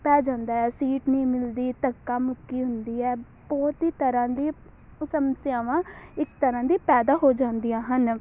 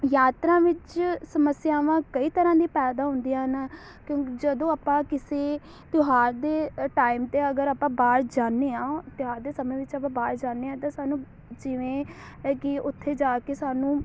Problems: none marked